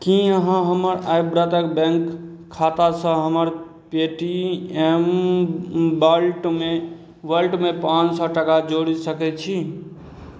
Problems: none marked